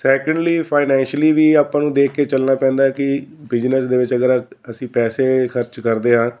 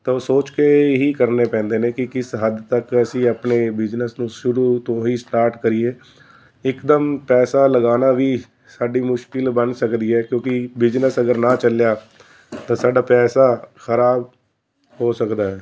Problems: constant background noise